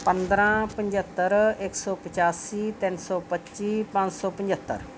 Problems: none marked